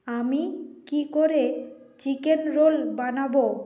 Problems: none marked